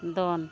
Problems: constant background noise